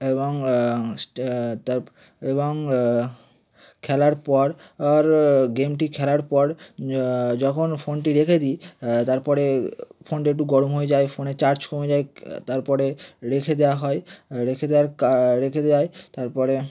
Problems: none marked